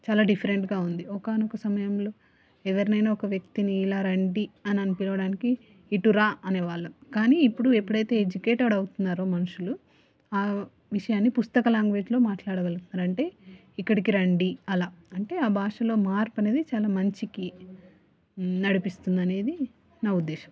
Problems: none marked